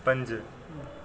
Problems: constant background noise